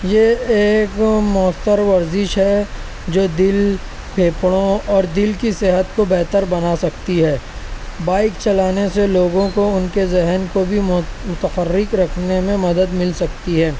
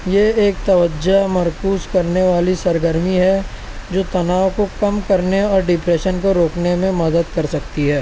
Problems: constant background noise